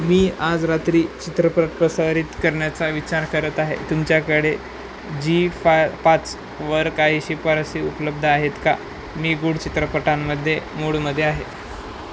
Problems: constant background noise